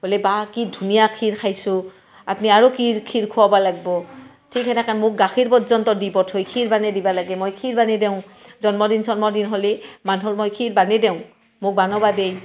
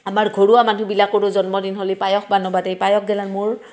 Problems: none marked